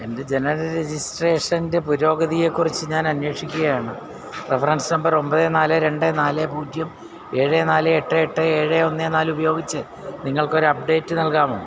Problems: constant background noise